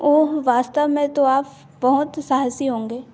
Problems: constant background noise, background conversations at intervals